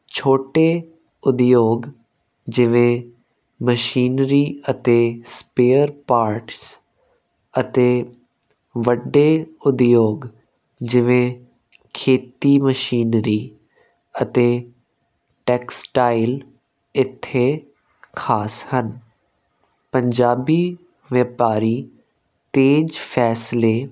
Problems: constant background noise